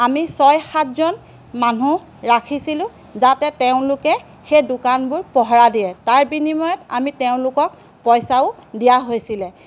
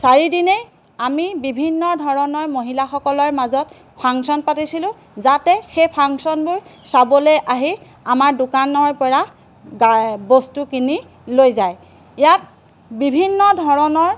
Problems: background sounds at intervals